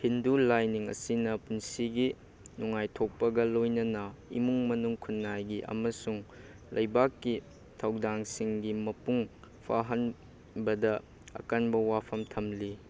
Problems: none marked